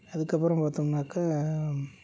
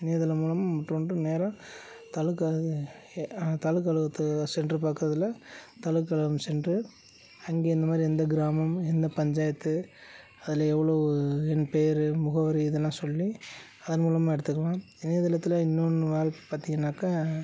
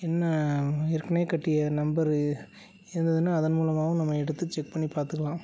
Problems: none marked